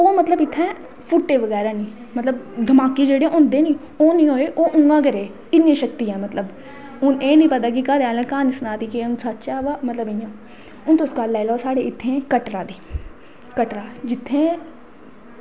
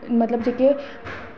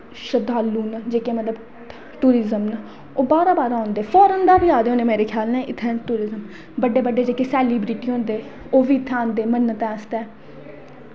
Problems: background sounds at intervals, echo